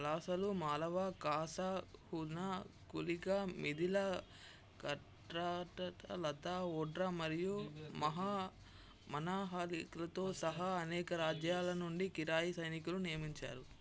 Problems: low volume